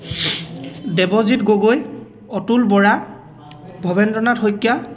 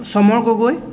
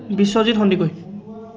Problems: constant background noise, background conversations at intervals